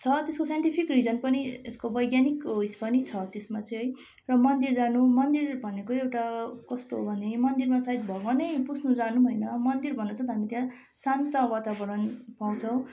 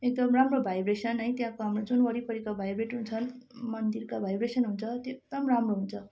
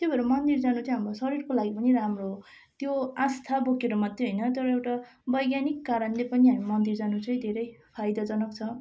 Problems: constant background noise